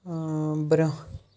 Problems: none marked